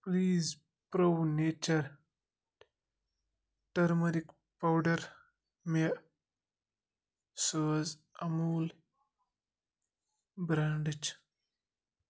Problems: none marked